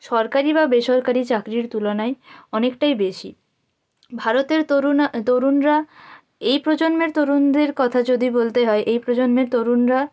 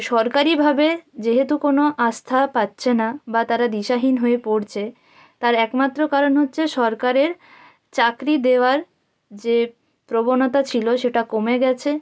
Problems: background sounds at intervals